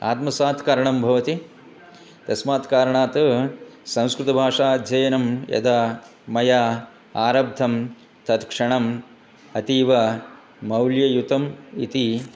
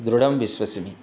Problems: constant background noise